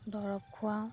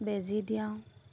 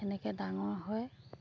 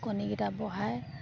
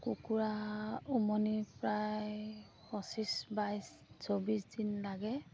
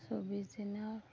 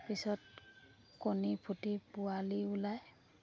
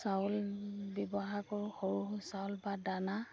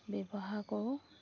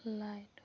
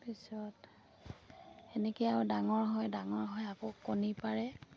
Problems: background sounds at intervals